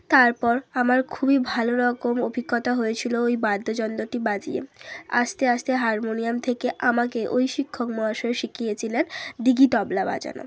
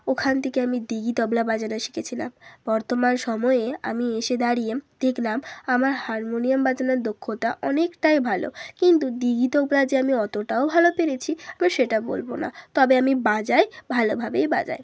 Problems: background sounds at intervals